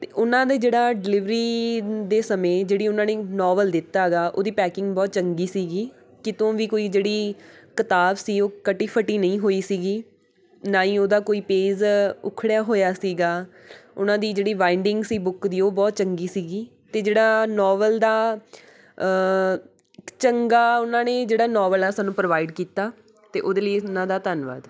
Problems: background sounds at intervals